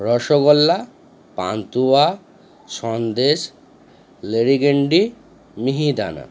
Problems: constant background noise